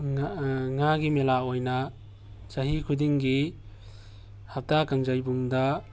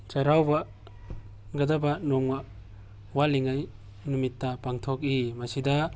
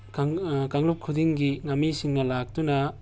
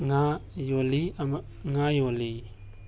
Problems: background sounds at intervals